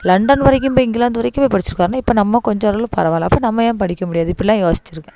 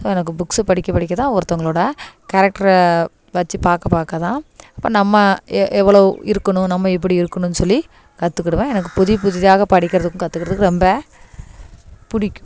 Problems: none marked